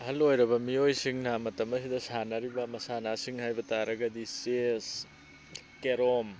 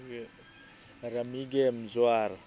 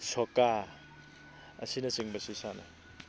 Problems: none marked